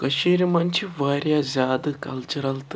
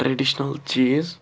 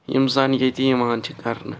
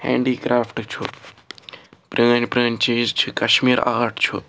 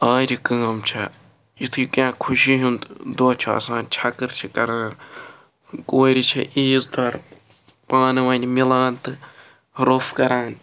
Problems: constant background noise